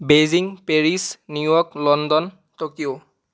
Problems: none marked